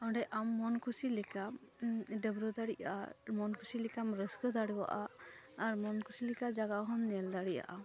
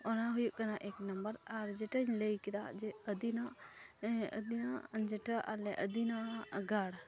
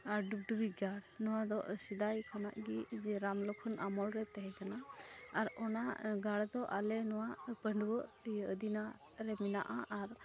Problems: constant background noise, continuous background conversations